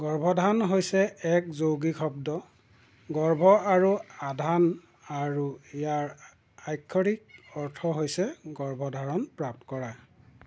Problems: constant background noise